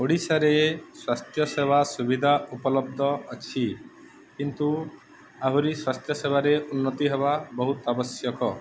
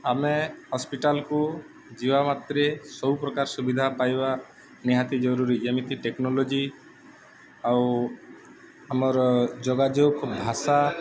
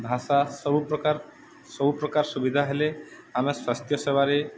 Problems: none marked